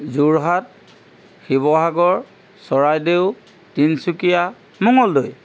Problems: constant background noise